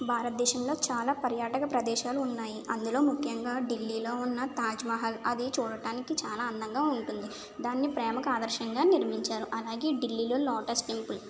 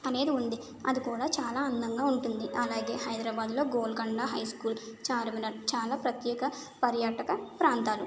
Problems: none marked